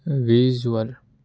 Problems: constant background noise